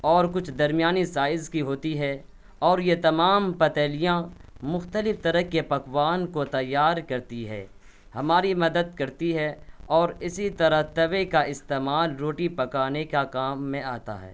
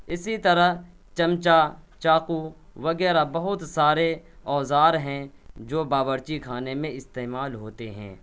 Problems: none marked